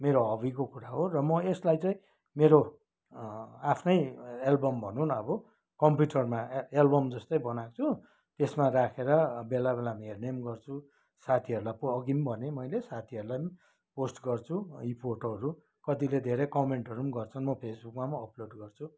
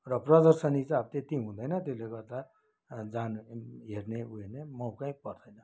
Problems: none marked